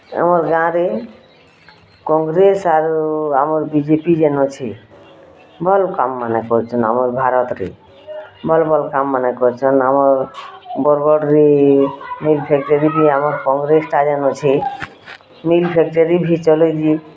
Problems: constant background noise, continuous background conversations